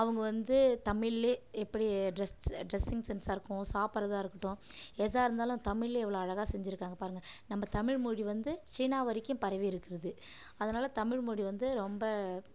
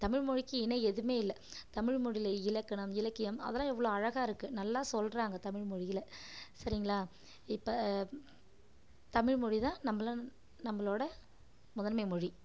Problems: none marked